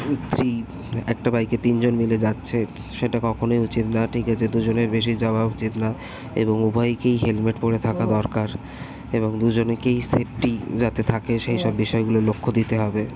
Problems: constant background noise, continuous background conversations